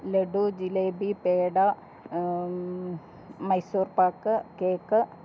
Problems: none marked